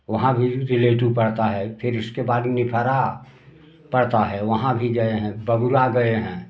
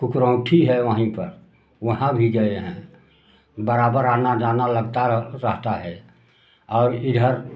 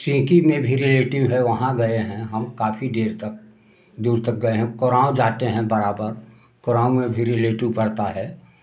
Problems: background sounds at intervals